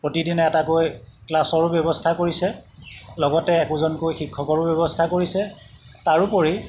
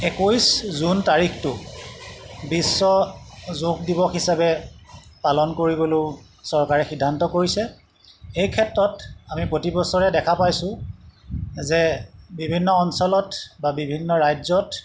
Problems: background sounds at intervals